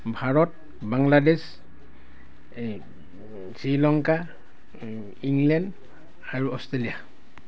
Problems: constant background noise